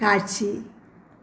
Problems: none marked